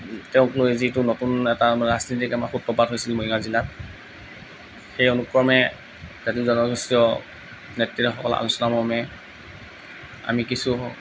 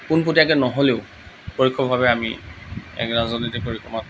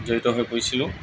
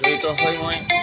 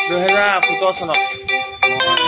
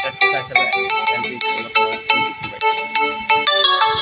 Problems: background sounds at intervals